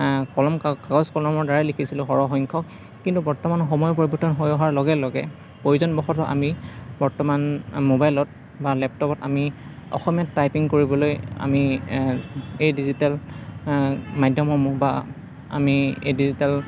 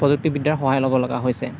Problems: constant background noise